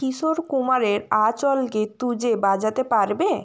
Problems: constant background noise